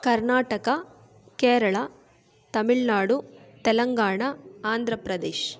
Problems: none marked